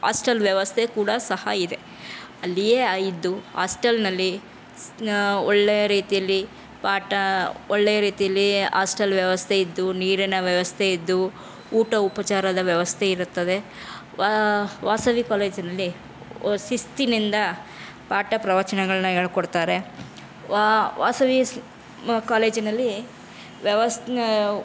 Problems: none marked